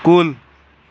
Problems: none marked